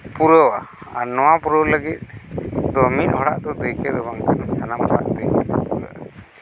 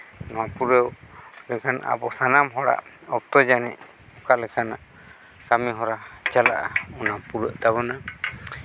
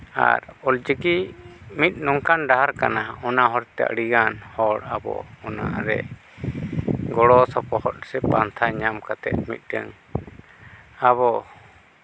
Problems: background sounds at intervals